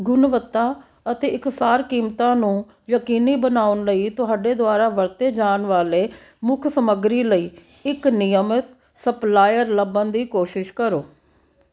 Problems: background sounds at intervals